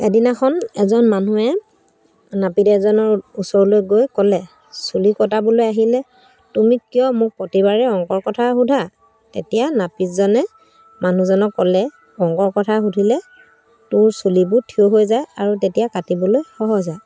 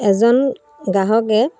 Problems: none marked